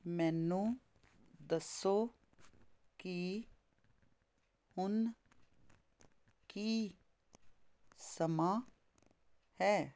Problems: constant background noise